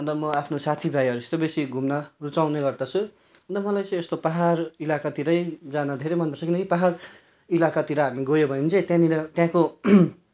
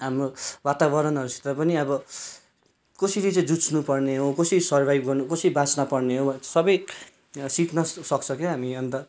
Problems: none marked